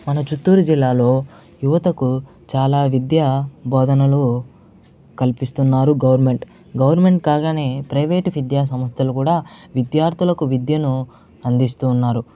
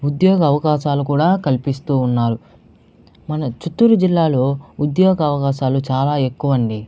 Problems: none marked